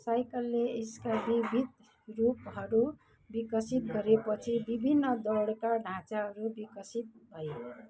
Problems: constant background noise, continuous background conversations